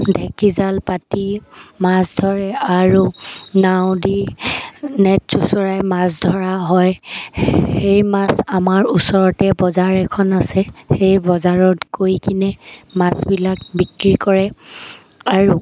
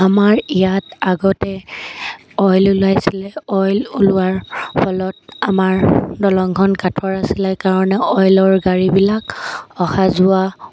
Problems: constant background noise